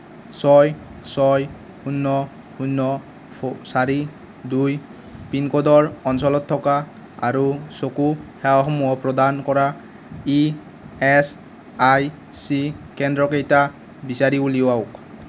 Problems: constant background noise